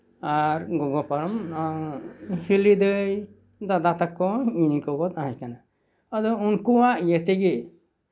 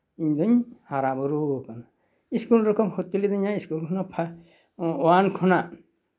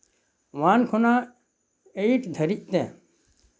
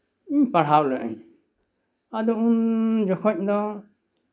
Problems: none marked